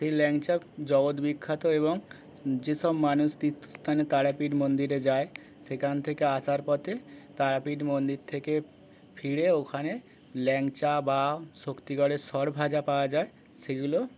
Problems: constant background noise, continuous background conversations